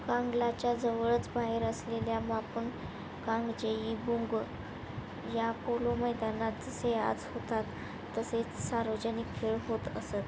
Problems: constant background noise